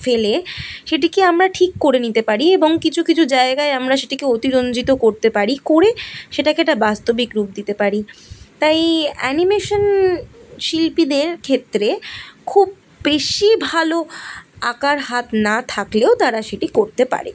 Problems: background sounds at intervals